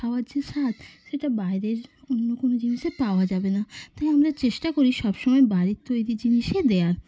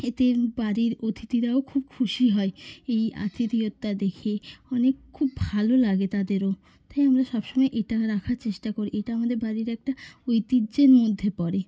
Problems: constant background noise, background conversations at intervals